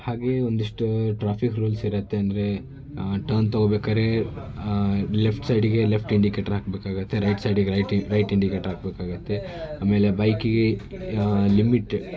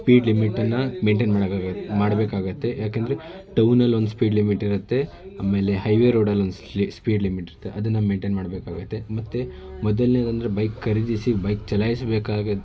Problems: none marked